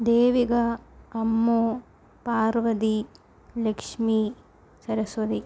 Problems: none marked